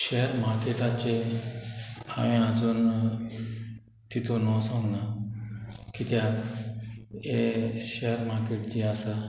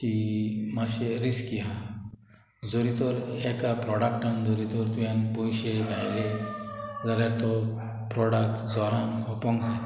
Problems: background sounds at intervals